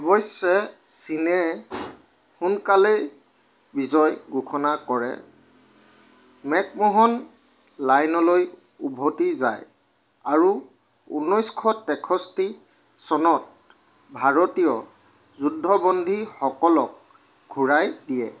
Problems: constant background noise